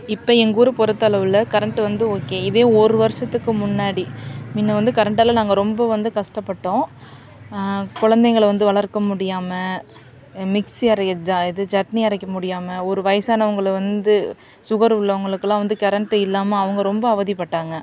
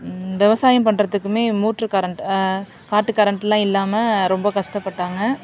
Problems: constant background noise